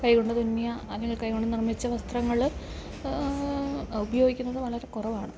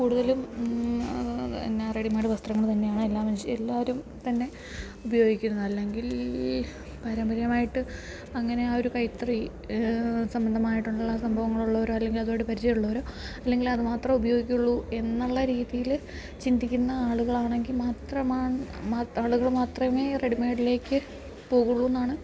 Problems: background sounds at intervals